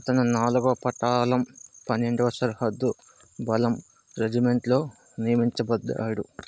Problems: constant background noise